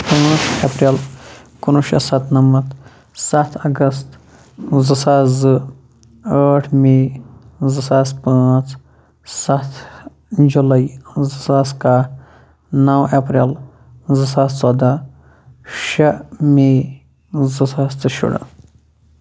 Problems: background sounds at intervals, low volume